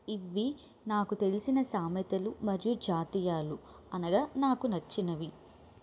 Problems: none marked